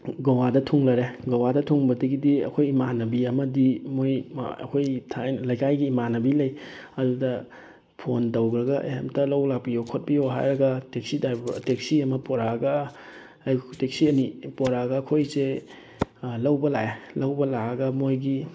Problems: none marked